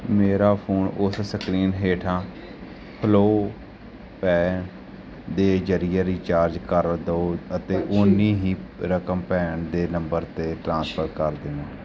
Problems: continuous background conversations